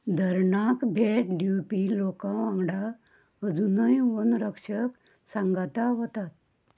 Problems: low volume